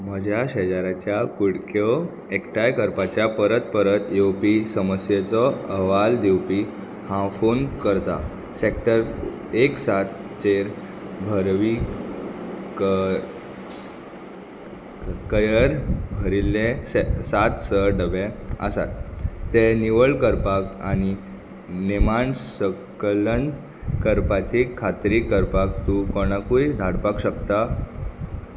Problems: constant background noise